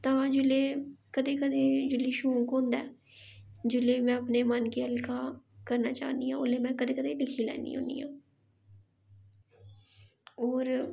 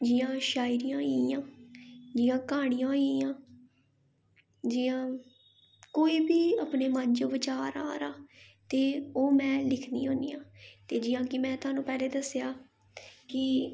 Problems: none marked